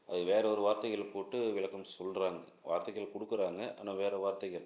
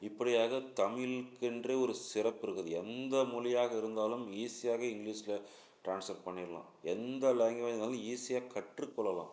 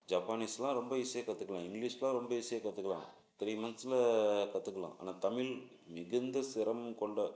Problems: low volume